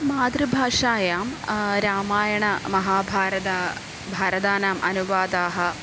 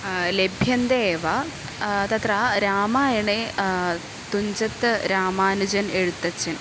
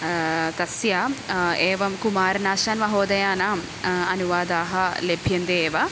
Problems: constant background noise